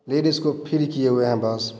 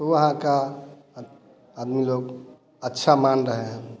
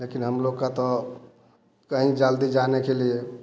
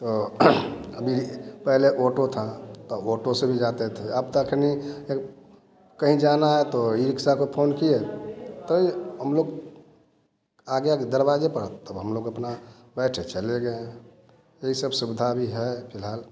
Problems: none marked